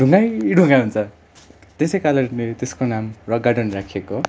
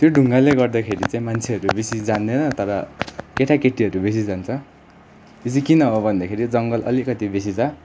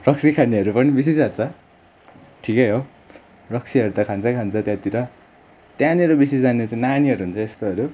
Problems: none marked